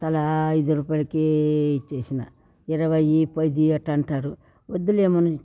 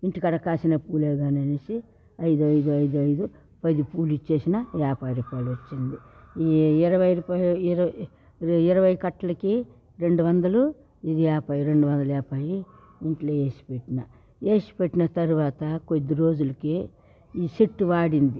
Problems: background sounds at intervals, background conversations at intervals